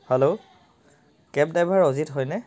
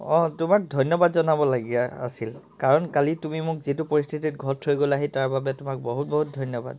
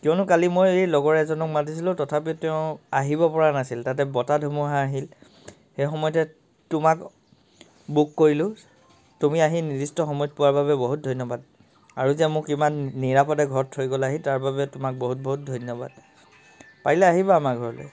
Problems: constant background noise, background conversations at intervals